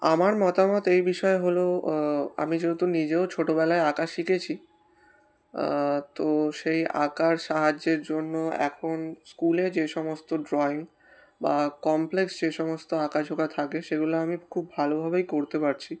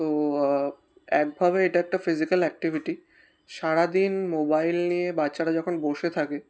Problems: constant background noise